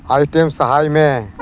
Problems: none marked